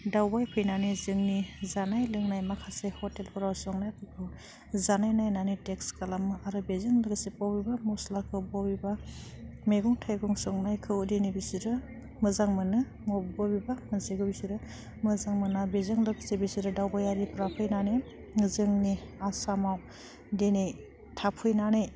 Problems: none marked